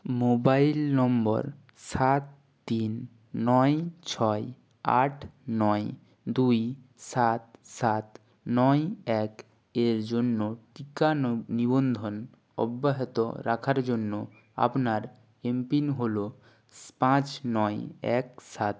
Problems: background sounds at intervals